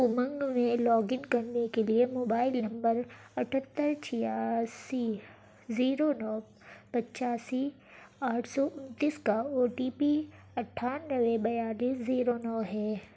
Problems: constant background noise